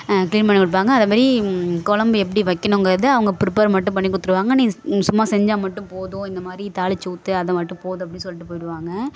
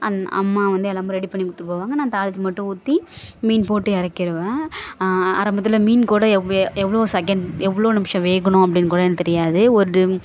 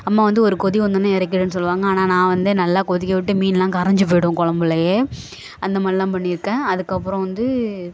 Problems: background sounds at intervals, background conversations at intervals